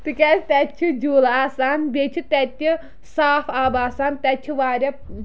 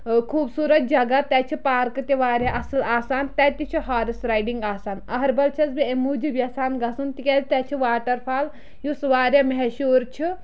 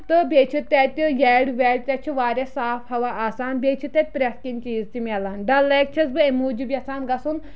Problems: none marked